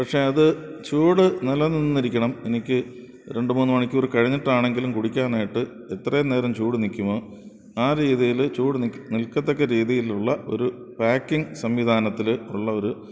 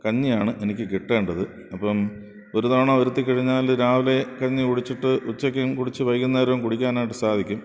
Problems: background sounds at intervals